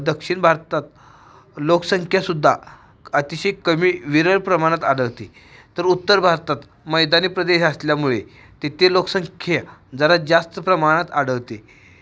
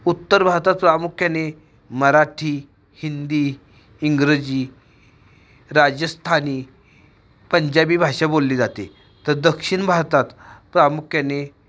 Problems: background sounds at intervals